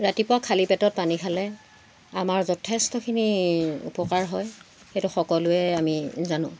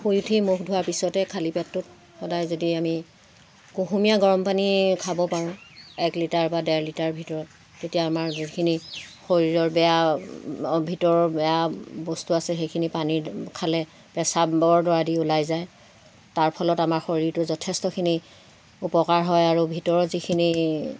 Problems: constant background noise